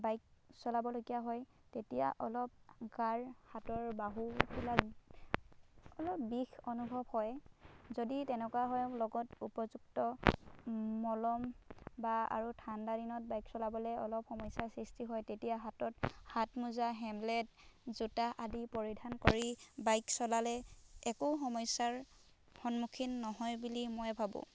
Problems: background sounds at intervals